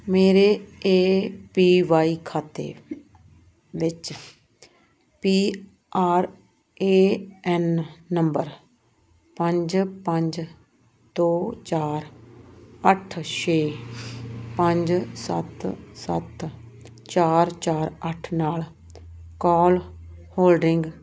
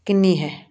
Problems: none marked